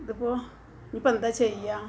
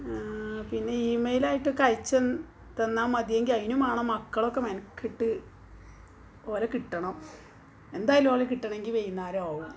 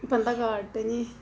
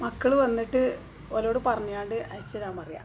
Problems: background sounds at intervals